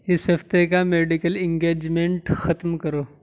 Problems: none marked